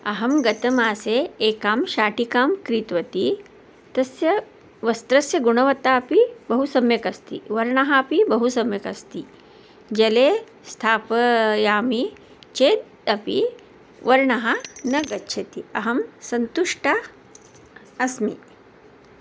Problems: none marked